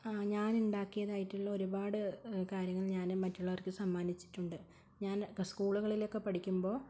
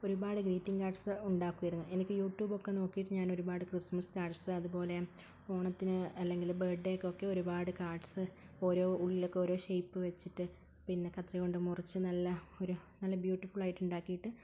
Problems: low volume